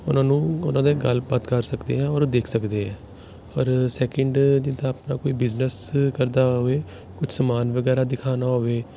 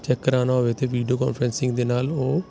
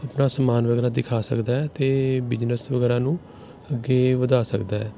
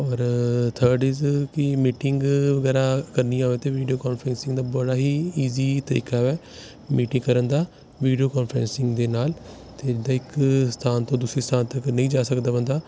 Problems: constant background noise